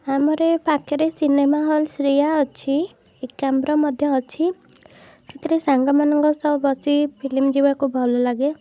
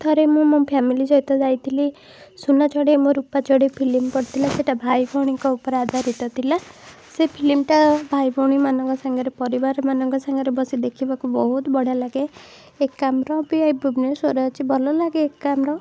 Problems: none marked